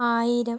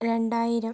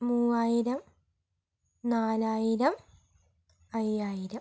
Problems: low volume